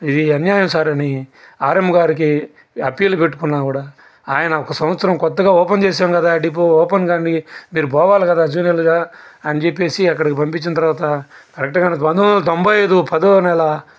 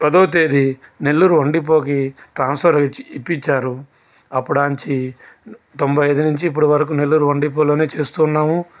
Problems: constant background noise